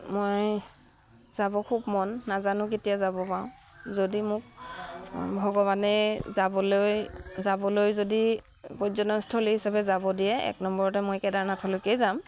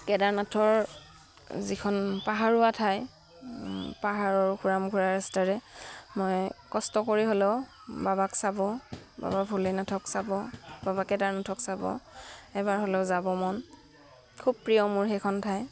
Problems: background sounds at intervals